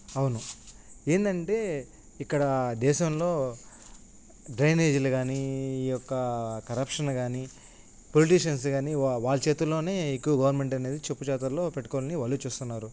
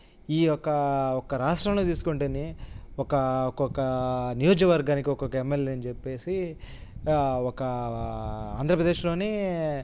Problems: constant background noise